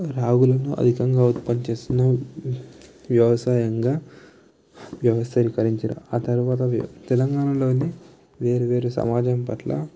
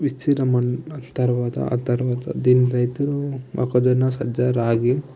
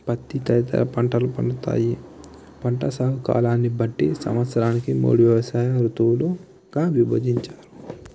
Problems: background conversations at intervals, low volume